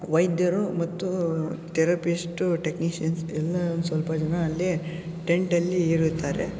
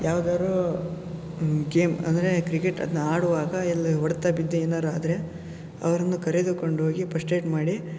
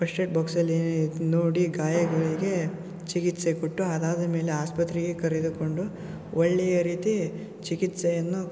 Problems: background sounds at intervals